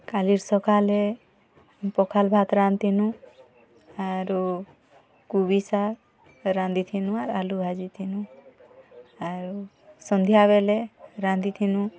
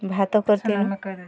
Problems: background conversations at intervals